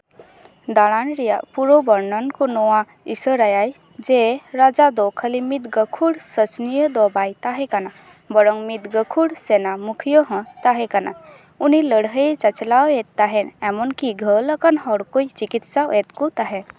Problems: none marked